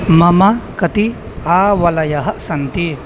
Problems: none marked